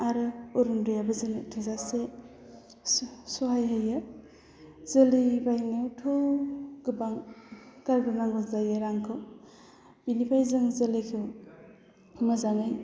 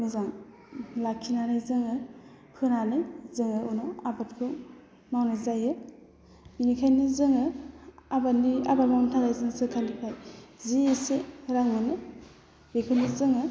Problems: low volume